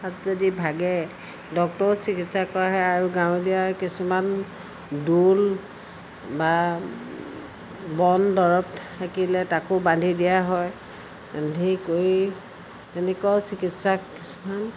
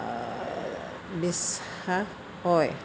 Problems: constant background noise